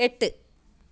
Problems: none marked